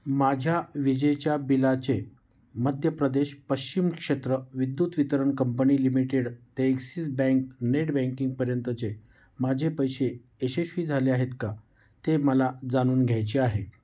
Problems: none marked